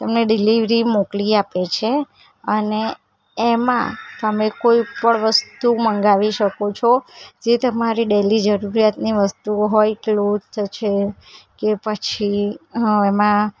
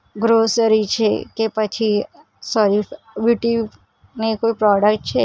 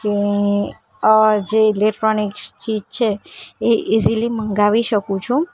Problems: background sounds at intervals